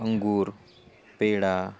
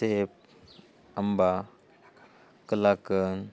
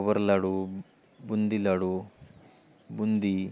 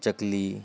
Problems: none marked